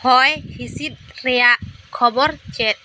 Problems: constant background noise